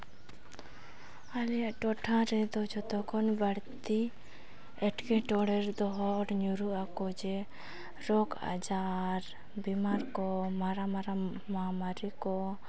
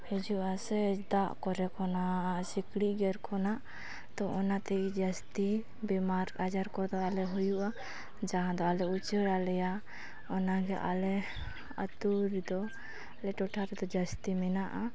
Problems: background conversations at intervals